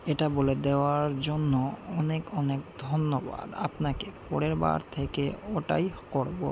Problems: constant background noise